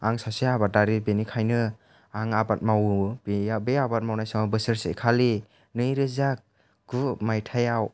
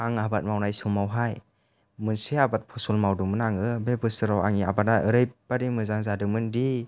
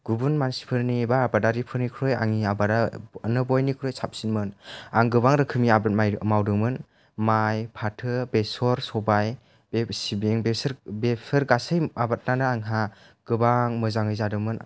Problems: low volume